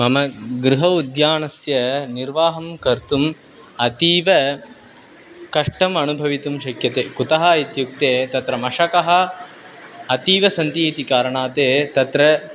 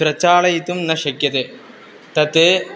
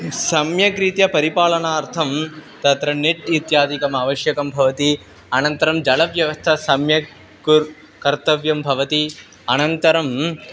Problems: constant background noise, continuous background conversations